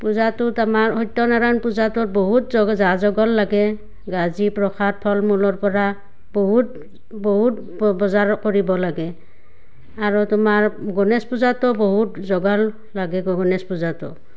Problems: none marked